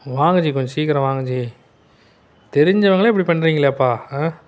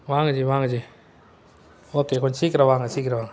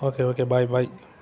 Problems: constant background noise